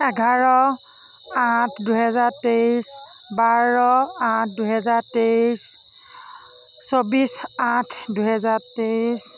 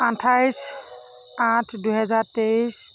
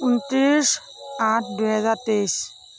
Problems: background conversations at intervals